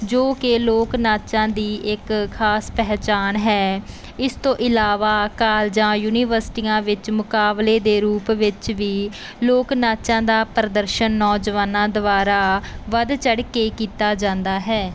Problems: none marked